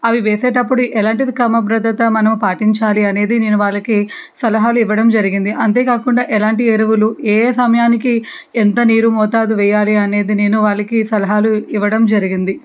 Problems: background sounds at intervals